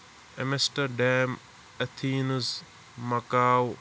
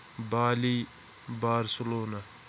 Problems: constant background noise